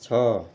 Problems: none marked